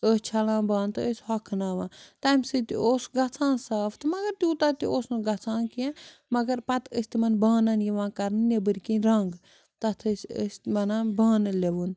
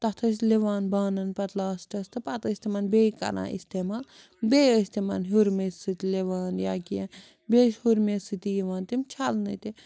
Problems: background sounds at intervals